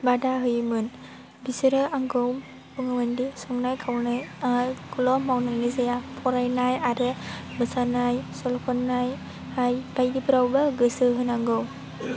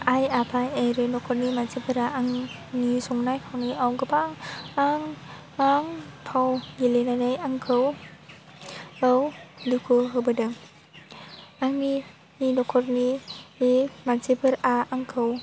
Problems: low volume